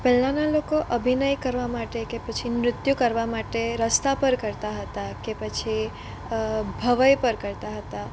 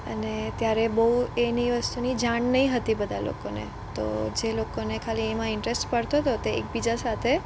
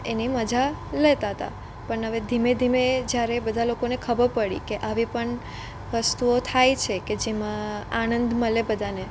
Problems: none marked